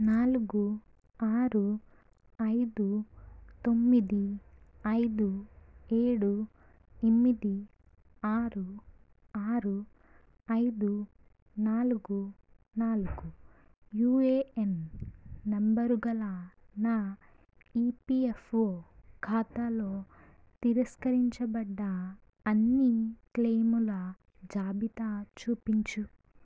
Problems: low volume